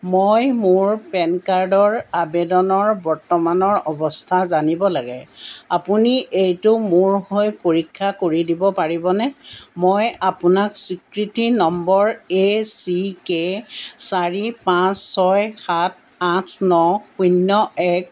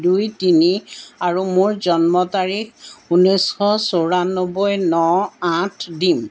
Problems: background sounds at intervals